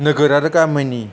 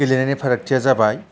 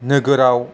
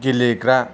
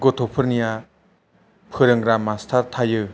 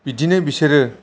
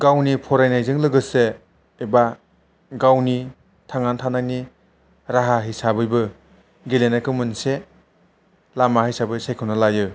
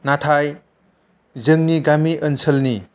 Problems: none marked